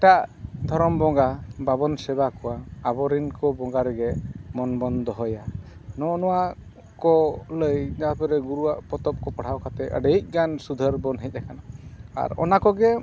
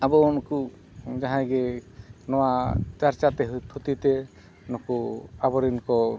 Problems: background sounds at intervals